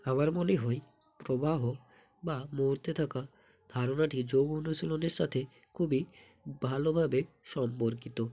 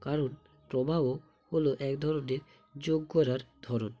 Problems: background sounds at intervals